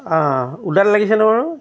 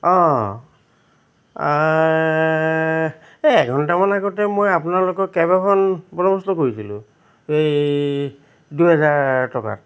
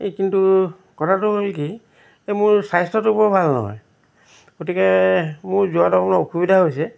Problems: constant background noise, background conversations at intervals